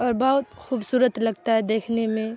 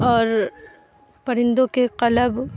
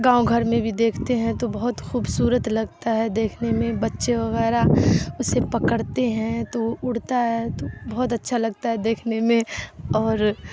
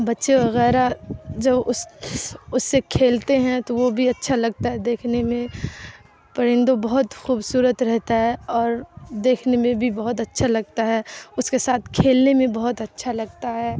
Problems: constant background noise